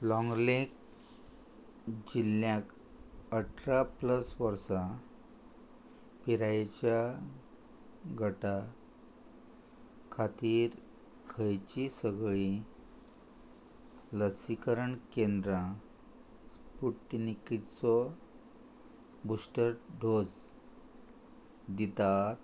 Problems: constant background noise